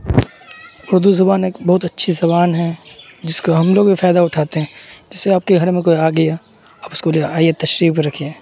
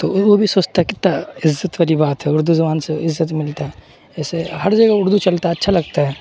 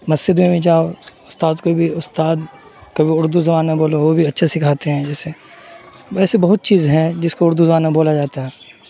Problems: constant background noise